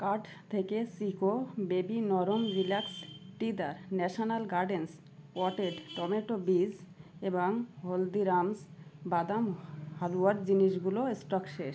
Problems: background sounds at intervals